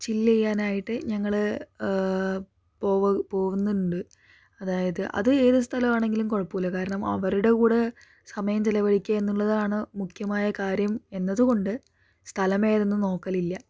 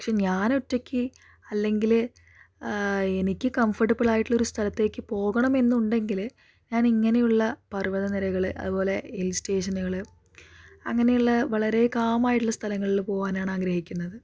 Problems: none marked